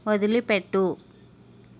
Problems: constant background noise